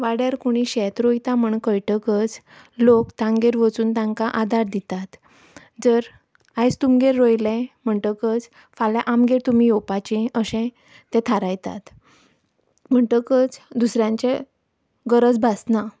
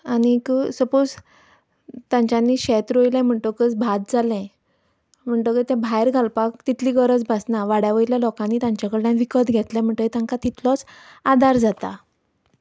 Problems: background sounds at intervals